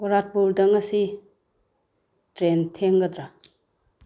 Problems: none marked